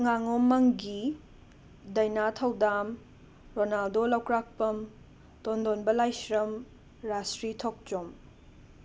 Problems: constant background noise